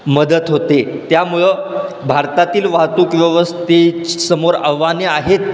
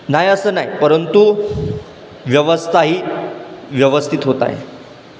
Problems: constant background noise, background conversations at intervals